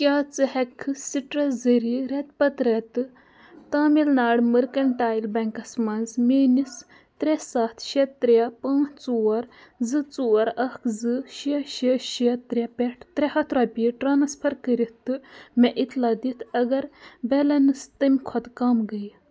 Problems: background sounds at intervals, background conversations at intervals